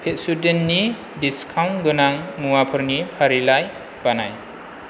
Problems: constant background noise